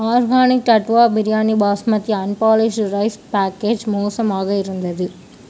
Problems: none marked